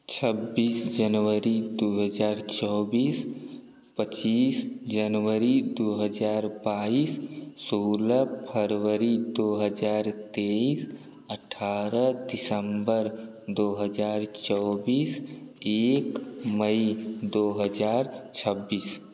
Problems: constant background noise